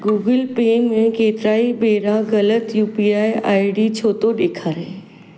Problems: none marked